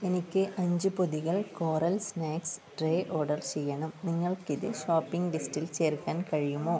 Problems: low volume